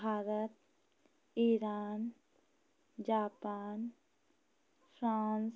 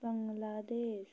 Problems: constant background noise